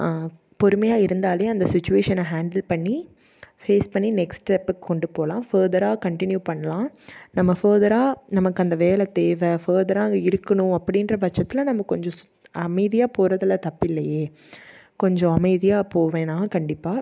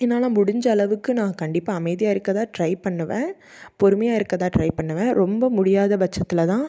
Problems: none marked